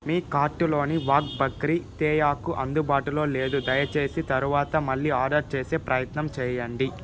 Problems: constant background noise